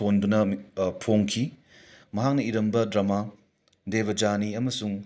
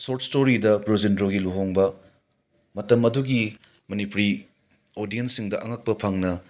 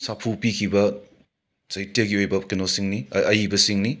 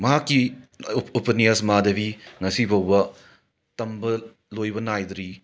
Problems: none marked